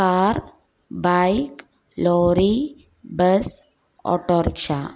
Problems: none marked